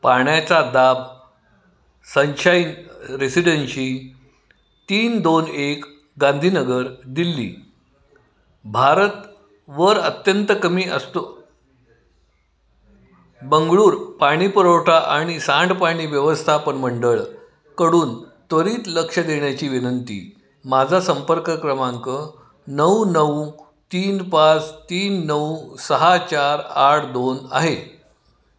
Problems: constant background noise, continuous background conversations